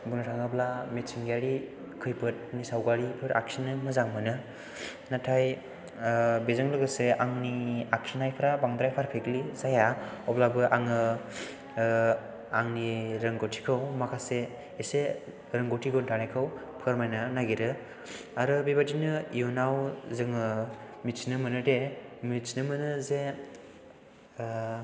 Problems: background sounds at intervals